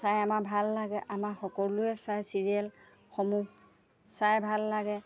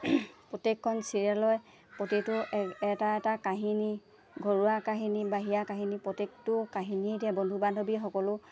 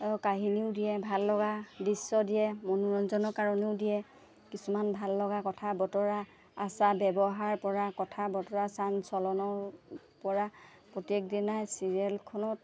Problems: none marked